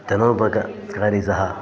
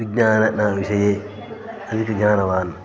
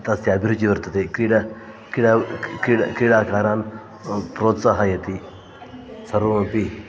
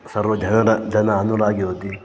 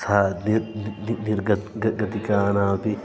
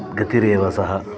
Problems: constant background noise, continuous background conversations